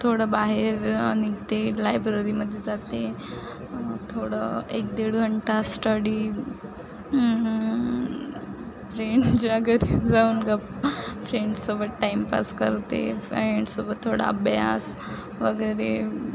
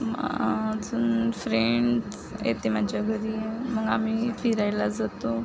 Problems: constant background noise, continuous background conversations